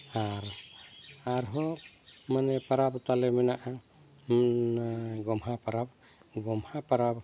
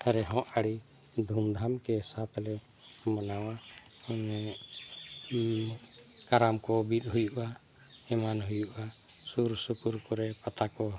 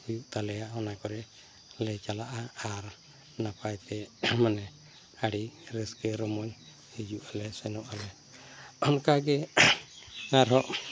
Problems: none marked